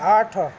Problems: constant background noise